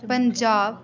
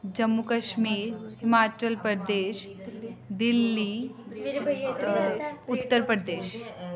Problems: background sounds at intervals